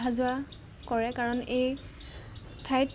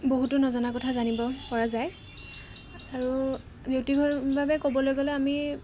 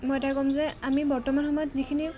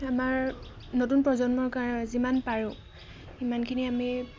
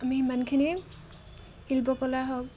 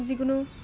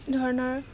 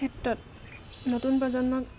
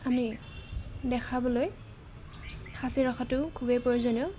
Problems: constant background noise